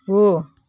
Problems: none marked